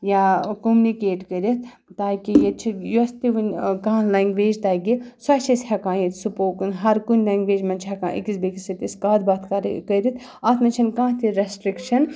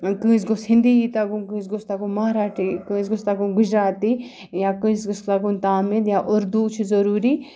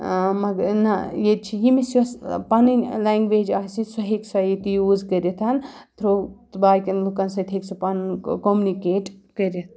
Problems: background sounds at intervals